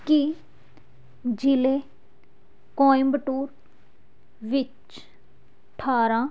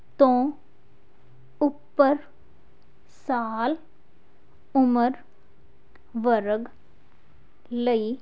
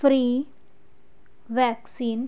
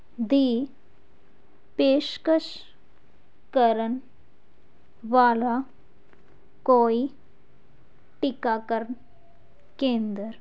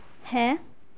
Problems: none marked